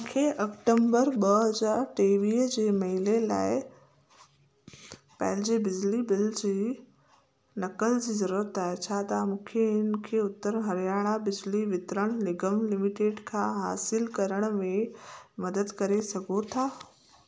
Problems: constant background noise, echo